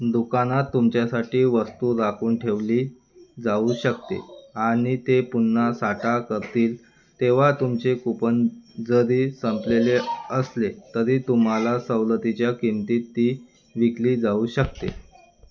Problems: none marked